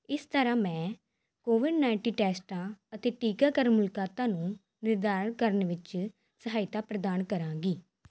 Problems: none marked